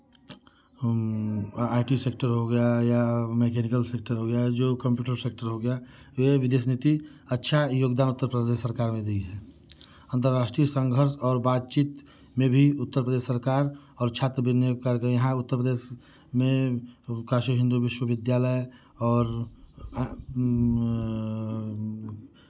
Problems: none marked